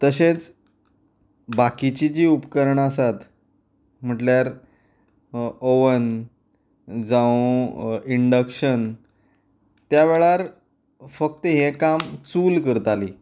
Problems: background sounds at intervals